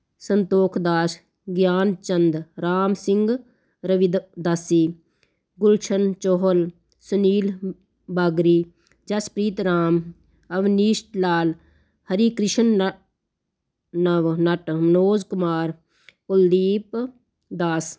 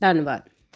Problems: constant background noise